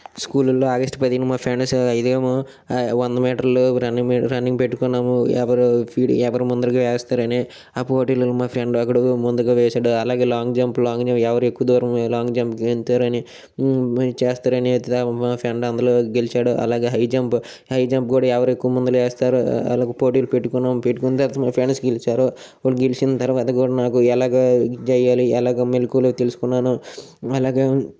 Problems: none marked